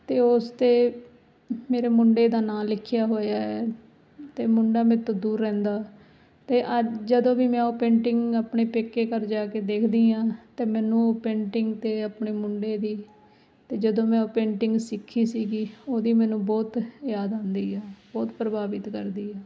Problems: none marked